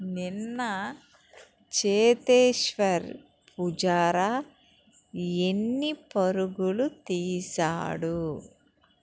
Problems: background sounds at intervals